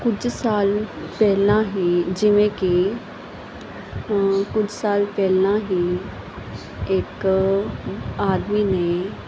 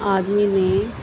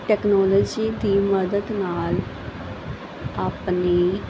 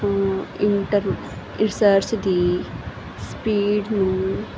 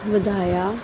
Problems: constant background noise, background conversations at intervals